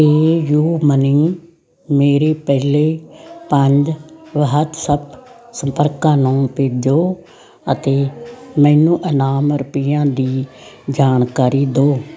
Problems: constant background noise